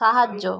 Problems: continuous background conversations